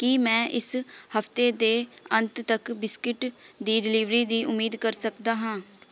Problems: background conversations at intervals